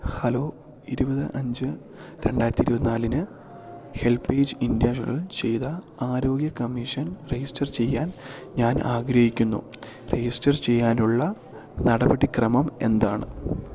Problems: constant background noise